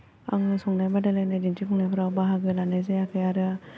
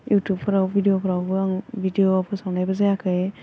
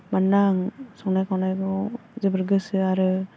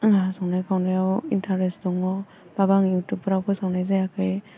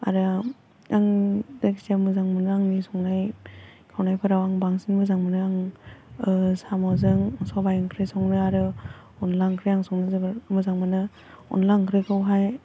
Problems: none marked